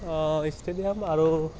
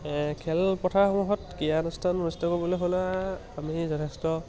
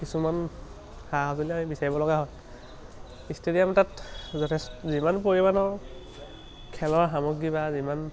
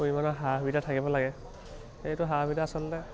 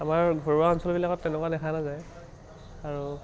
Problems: none marked